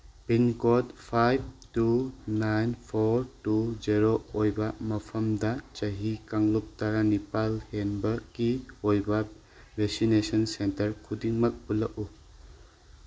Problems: constant background noise